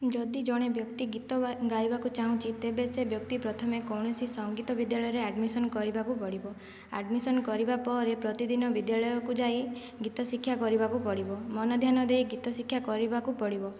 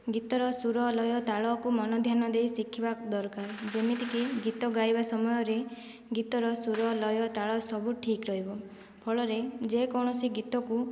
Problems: background sounds at intervals, low volume